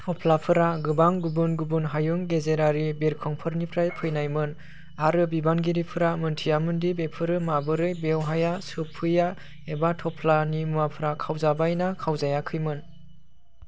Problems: none marked